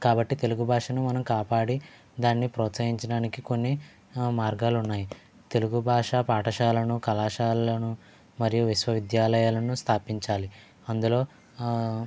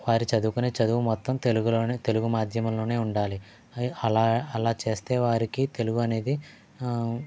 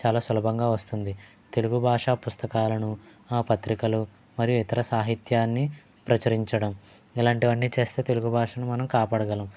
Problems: low volume